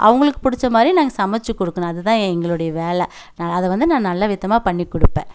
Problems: none marked